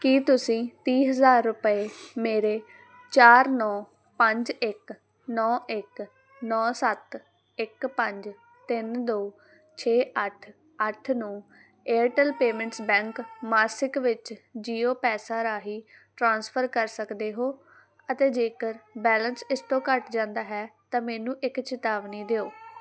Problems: none marked